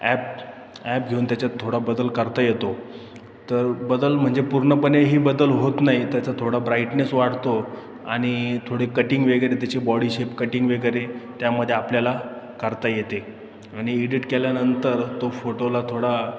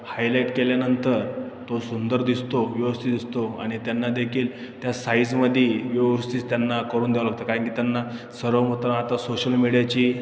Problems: constant background noise, background conversations at intervals